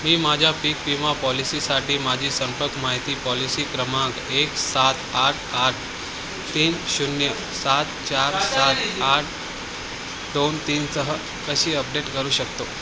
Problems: constant background noise, continuous background conversations